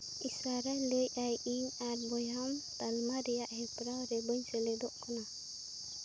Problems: none marked